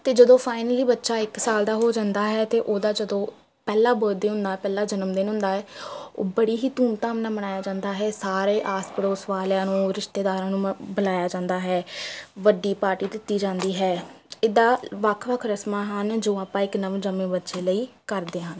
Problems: constant background noise, continuous background conversations